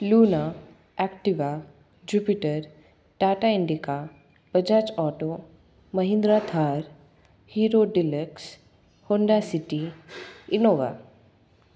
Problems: none marked